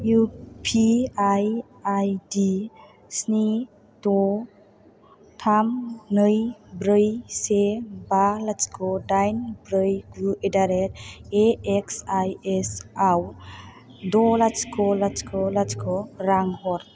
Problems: low volume